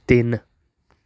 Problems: background conversations at intervals